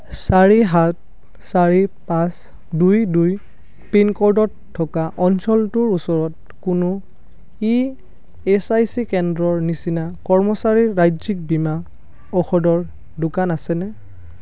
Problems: none marked